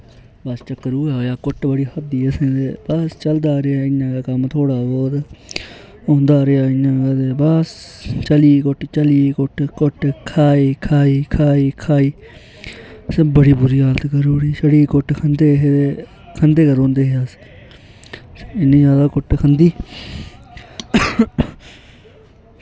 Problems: constant background noise